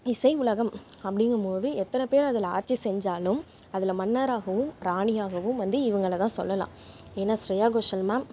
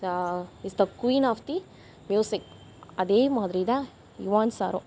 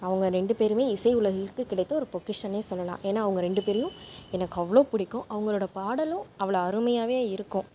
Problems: background sounds at intervals